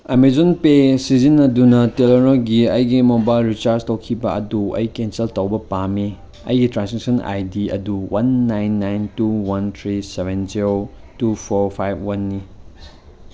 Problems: background sounds at intervals